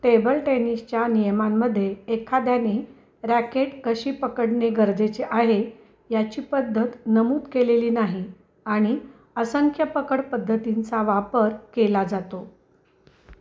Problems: none marked